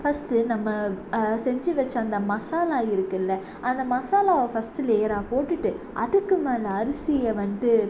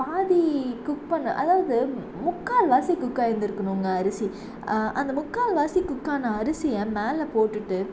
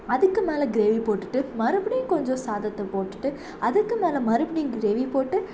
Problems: constant background noise